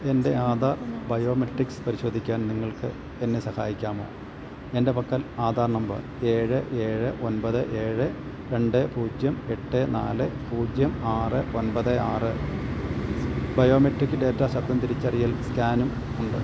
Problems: none marked